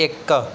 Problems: background sounds at intervals